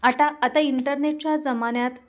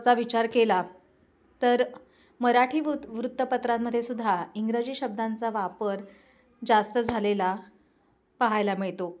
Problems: constant background noise, background conversations at intervals